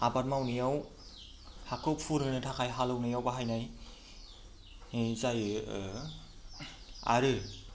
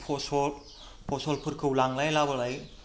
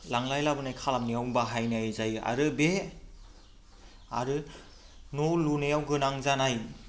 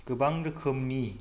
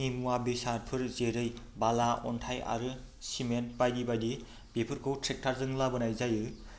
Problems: constant background noise